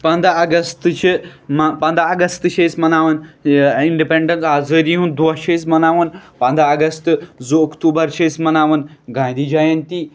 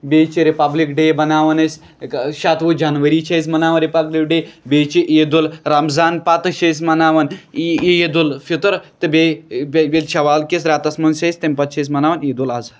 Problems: none marked